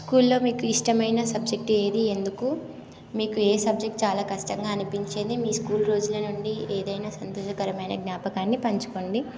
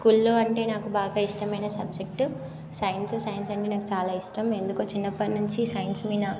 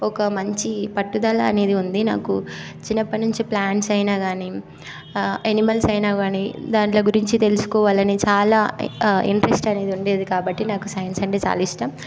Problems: constant background noise